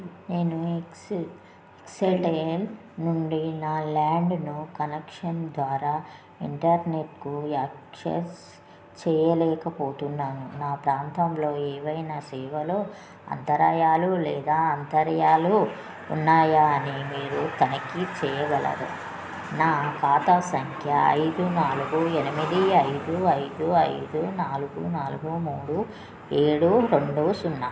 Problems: none marked